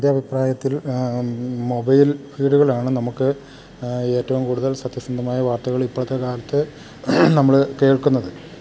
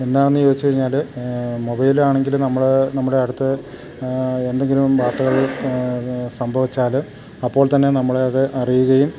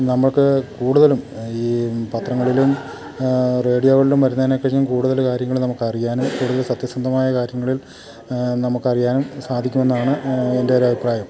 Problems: none marked